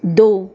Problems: constant background noise